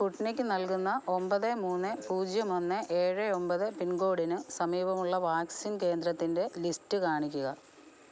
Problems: background sounds at intervals, low volume